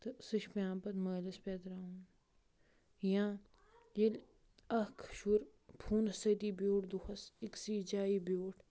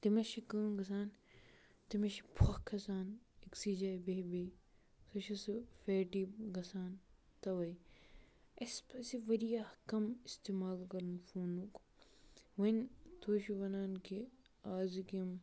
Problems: none marked